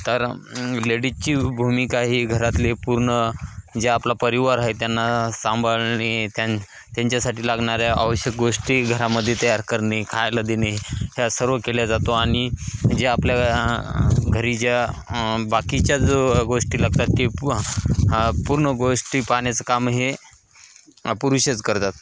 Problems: constant background noise